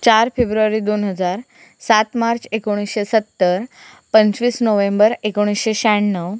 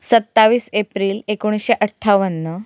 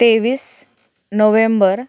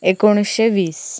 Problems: constant background noise